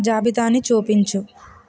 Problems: constant background noise